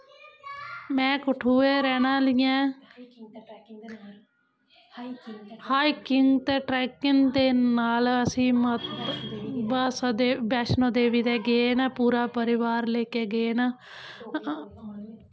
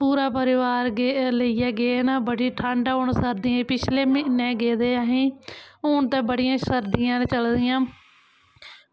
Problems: constant background noise